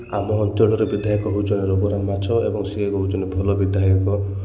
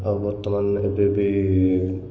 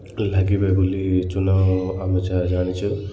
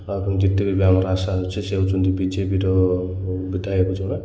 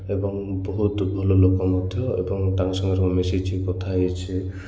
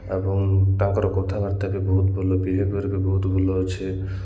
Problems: none marked